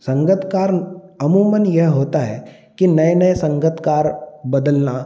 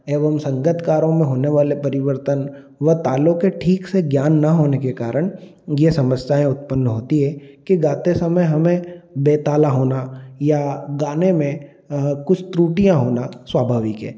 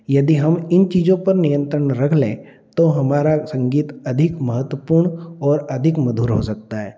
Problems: none marked